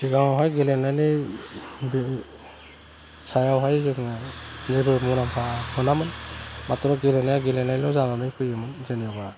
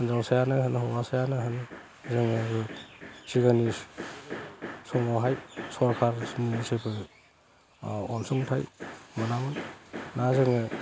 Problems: low volume